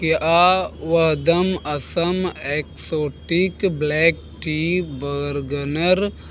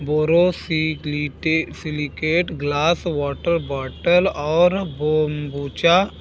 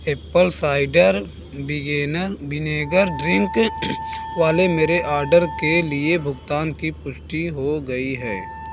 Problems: background sounds at intervals